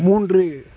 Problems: background conversations at intervals